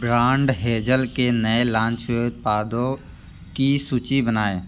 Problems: none marked